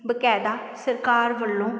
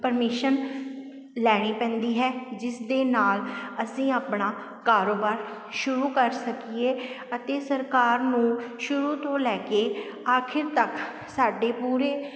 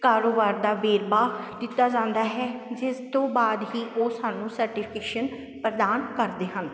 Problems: none marked